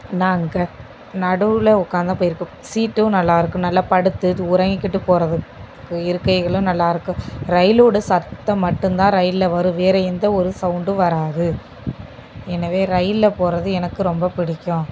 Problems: constant background noise